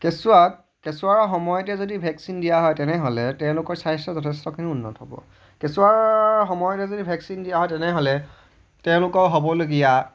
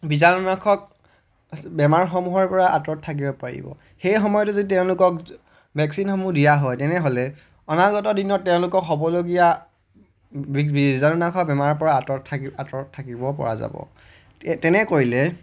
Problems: none marked